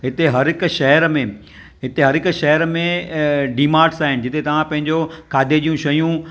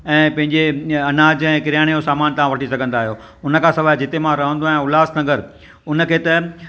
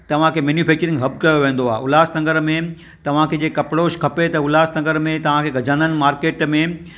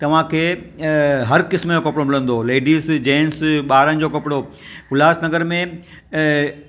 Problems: none marked